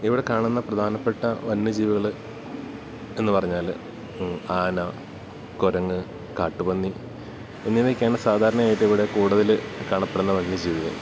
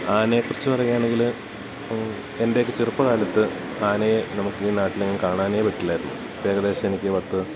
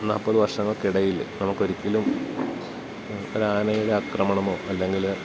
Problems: constant background noise